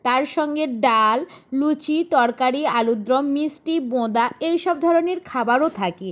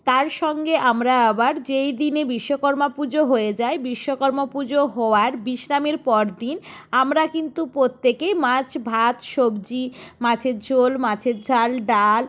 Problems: background sounds at intervals